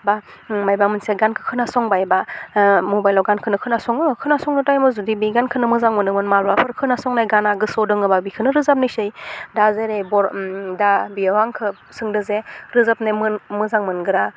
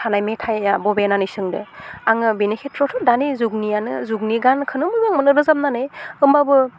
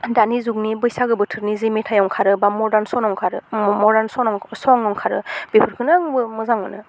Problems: constant background noise